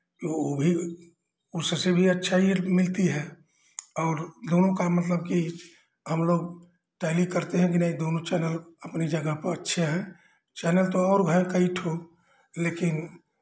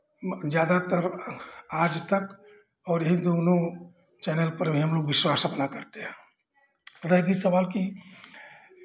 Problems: background sounds at intervals, background conversations at intervals